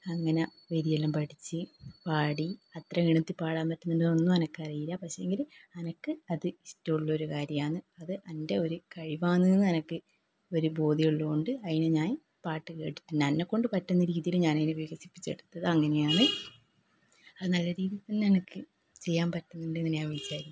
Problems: low volume